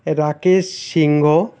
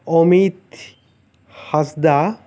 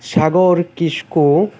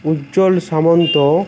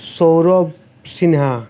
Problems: constant background noise